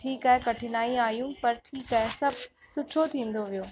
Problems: constant background noise, echo